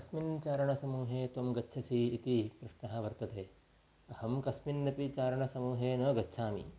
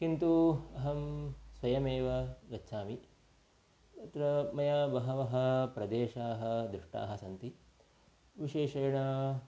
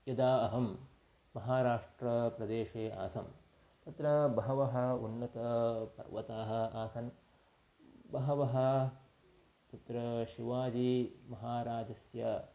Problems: constant background noise